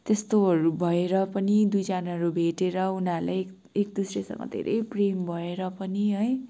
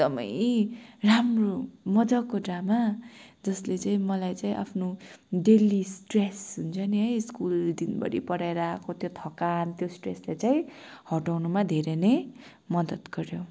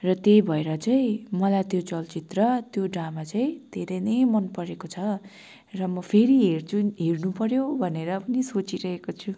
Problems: background sounds at intervals, background conversations at intervals